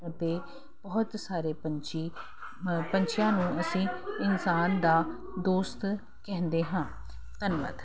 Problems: constant background noise